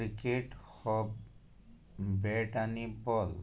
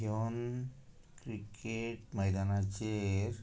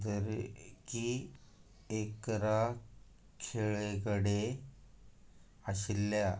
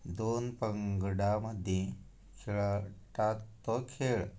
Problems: none marked